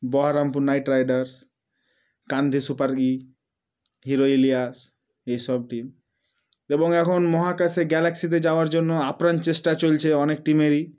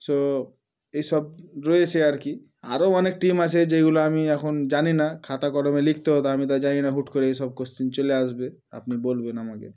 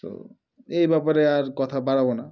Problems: background sounds at intervals